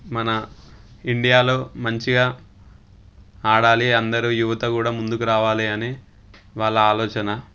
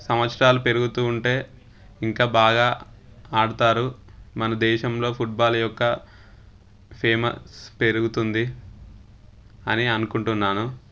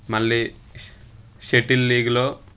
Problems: constant background noise